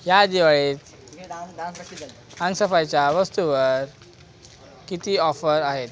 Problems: constant background noise, continuous background conversations